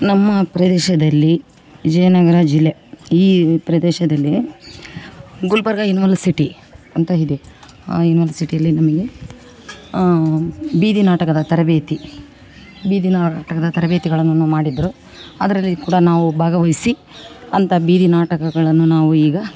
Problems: background conversations at intervals